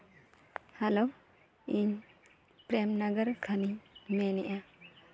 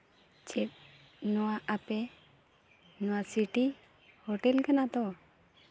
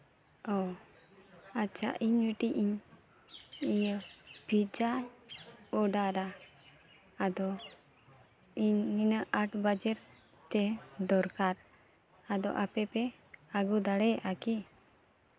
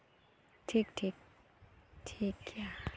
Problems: none marked